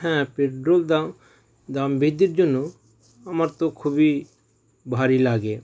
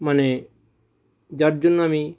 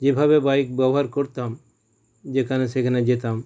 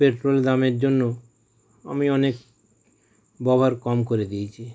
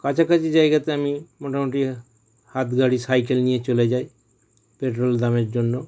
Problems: none marked